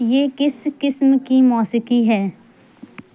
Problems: constant background noise